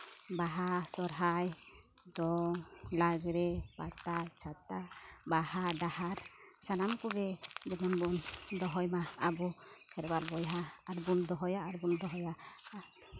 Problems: none marked